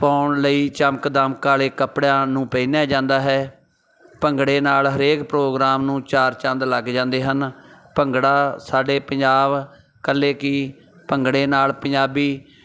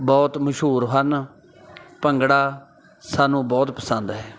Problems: background sounds at intervals, background conversations at intervals